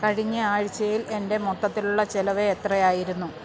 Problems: constant background noise